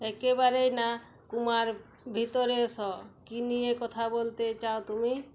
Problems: none marked